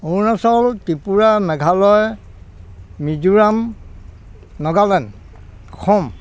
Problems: constant background noise, continuous background conversations